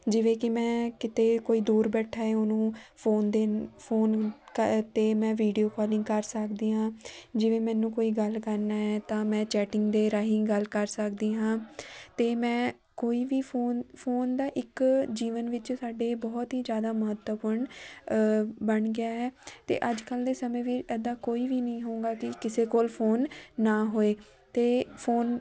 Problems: background sounds at intervals, continuous background conversations